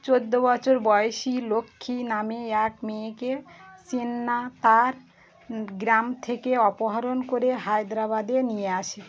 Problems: constant background noise